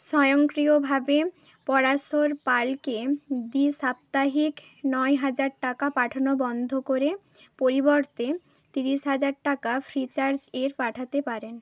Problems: none marked